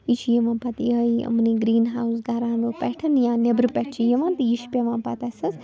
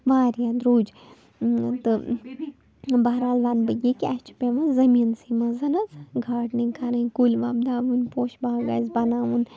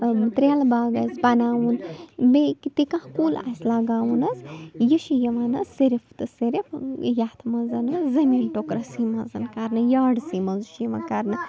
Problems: constant background noise, low volume